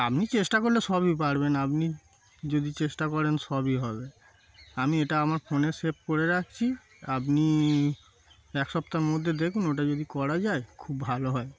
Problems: constant background noise